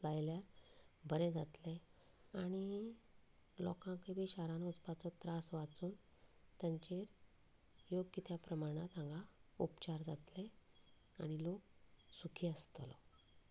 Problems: none marked